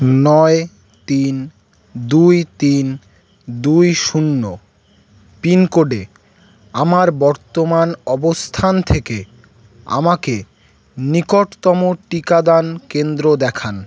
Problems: constant background noise